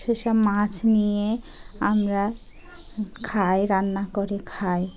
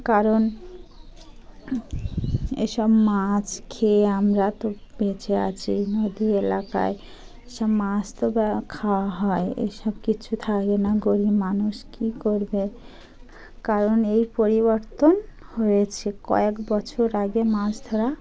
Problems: background sounds at intervals, continuous background conversations